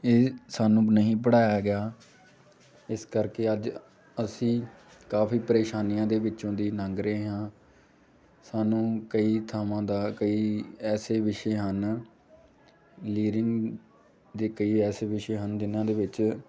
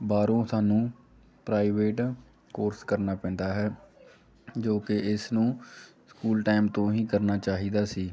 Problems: constant background noise